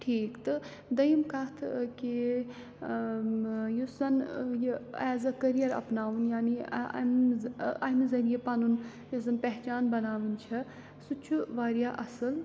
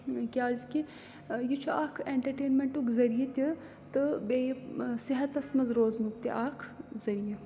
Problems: background sounds at intervals